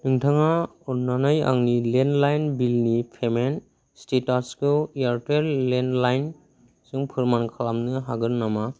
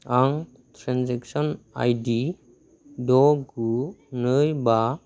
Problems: constant background noise